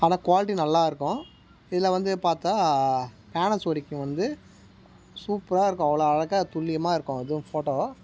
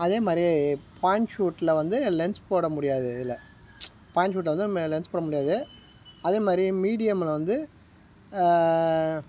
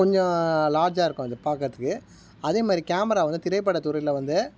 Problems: background sounds at intervals